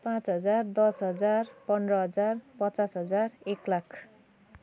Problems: continuous background conversations